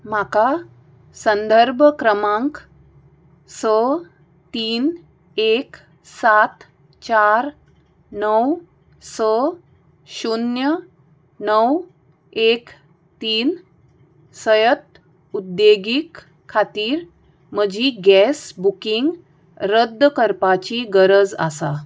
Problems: background sounds at intervals